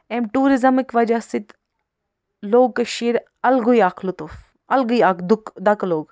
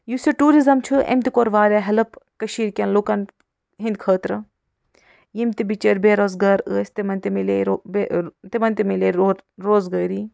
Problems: none marked